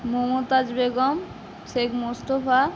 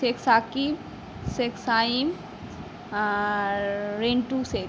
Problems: none marked